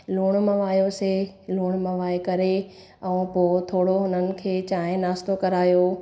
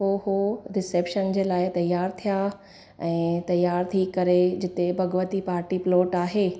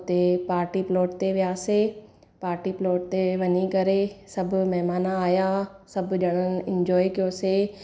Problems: none marked